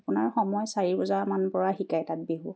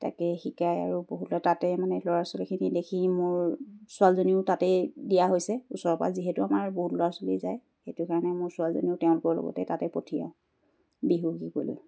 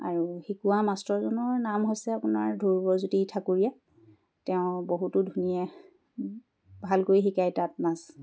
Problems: none marked